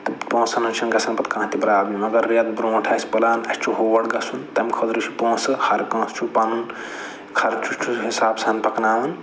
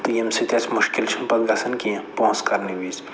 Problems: none marked